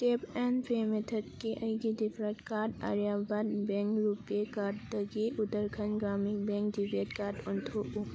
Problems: none marked